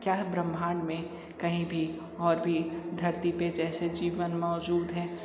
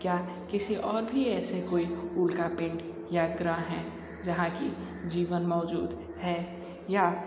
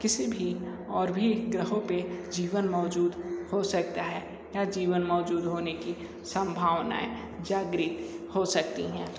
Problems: none marked